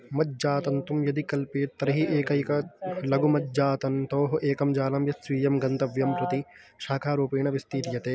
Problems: background conversations at intervals